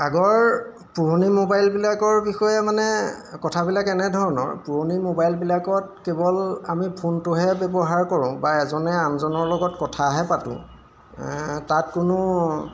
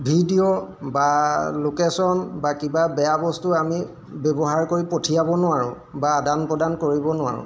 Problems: background sounds at intervals